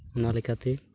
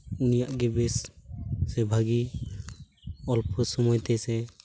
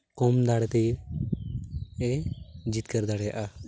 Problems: background sounds at intervals